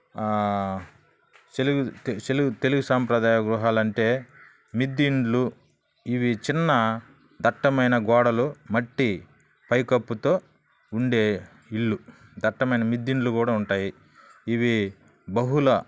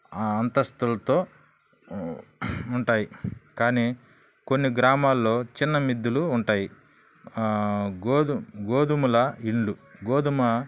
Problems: none marked